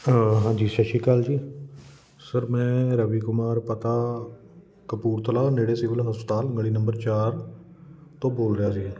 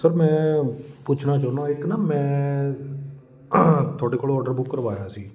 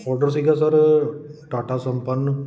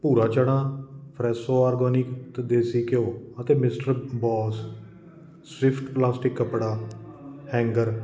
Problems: none marked